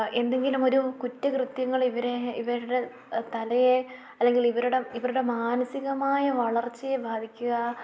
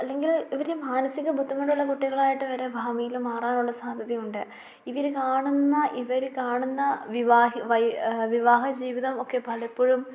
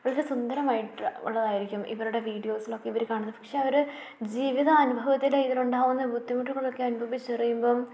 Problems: low volume